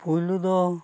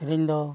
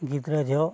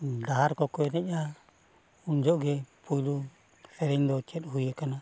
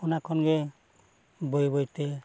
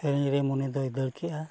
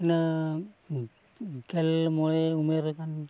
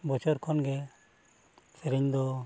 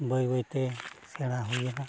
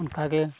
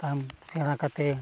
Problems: constant background noise, low volume